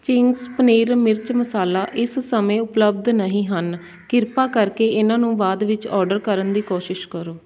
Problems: constant background noise